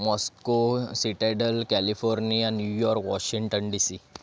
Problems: background sounds at intervals